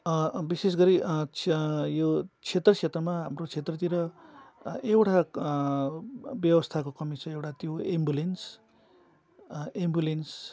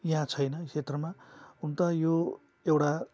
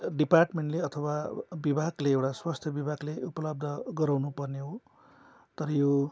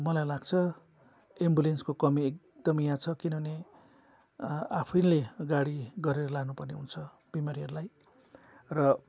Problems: constant background noise